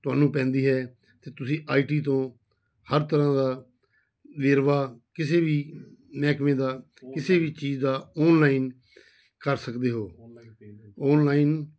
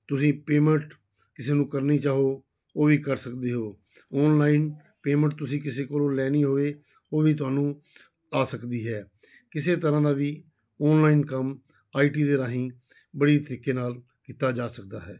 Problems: background sounds at intervals